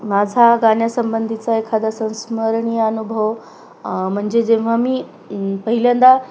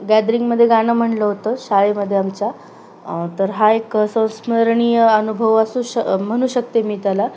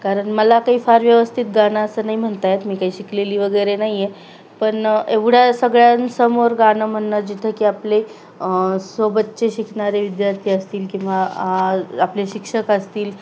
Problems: none marked